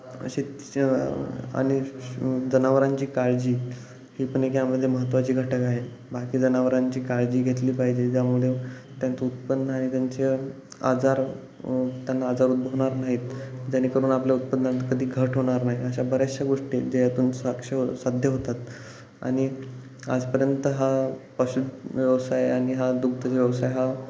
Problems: none marked